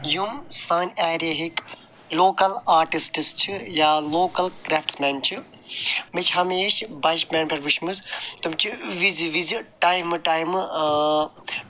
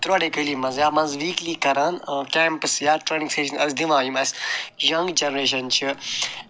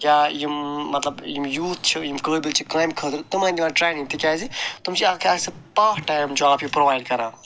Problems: none marked